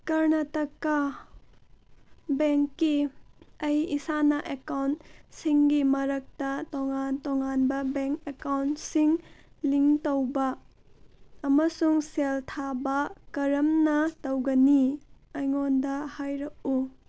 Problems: background sounds at intervals